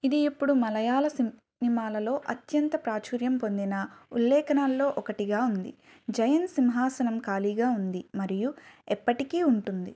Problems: background sounds at intervals